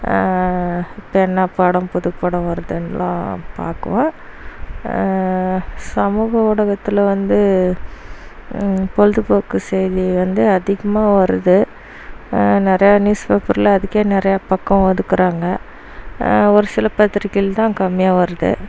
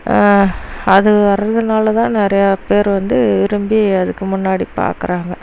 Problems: constant background noise